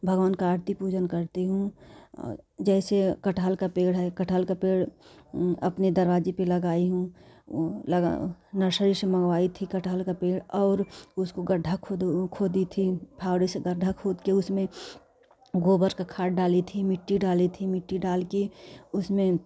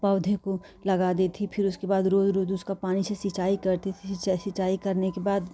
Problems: none marked